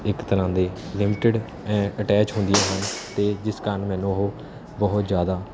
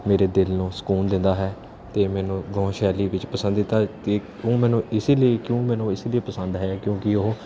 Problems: constant background noise